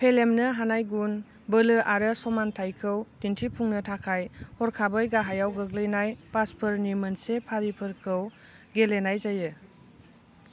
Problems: constant background noise